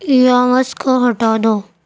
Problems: none marked